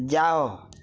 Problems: none marked